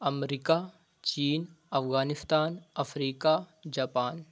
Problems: none marked